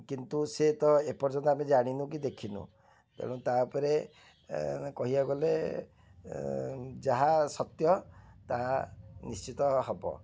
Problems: none marked